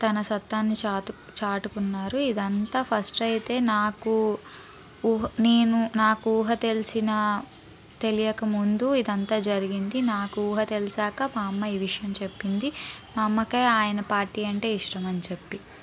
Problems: background conversations at intervals